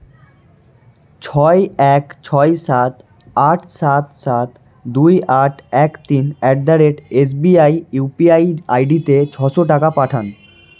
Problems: constant background noise